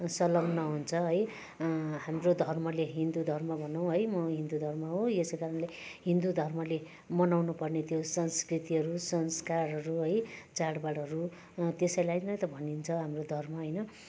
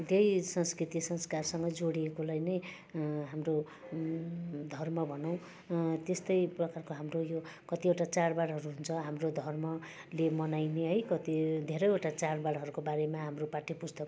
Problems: none marked